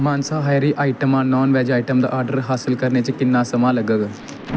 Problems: constant background noise